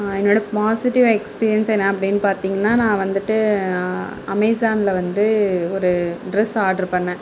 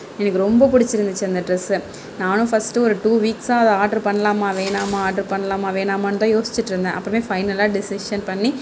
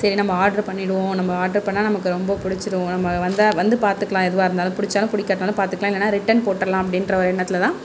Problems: background sounds at intervals